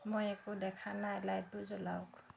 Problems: background sounds at intervals